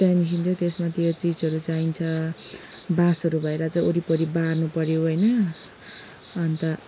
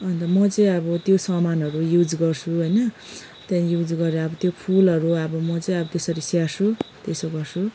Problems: background sounds at intervals, background conversations at intervals